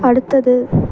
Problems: background sounds at intervals